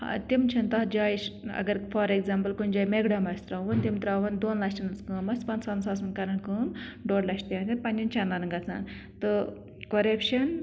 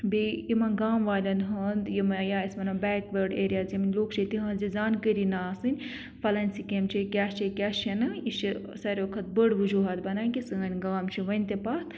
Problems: none marked